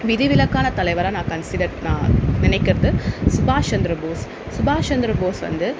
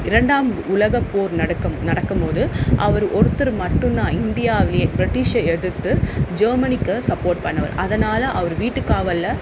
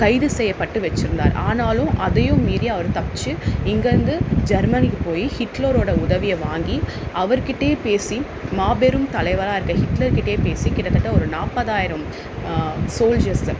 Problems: constant background noise